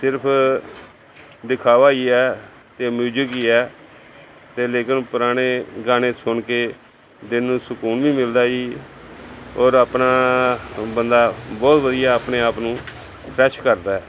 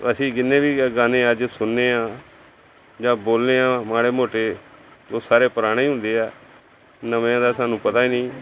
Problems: background conversations at intervals